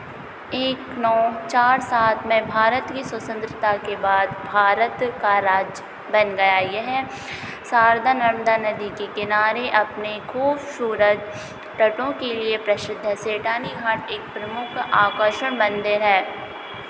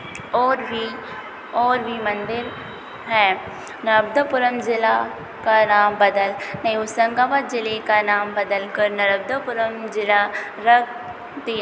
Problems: constant background noise, continuous background conversations